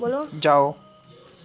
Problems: constant background noise, background conversations at intervals